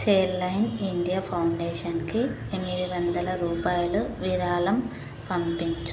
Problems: constant background noise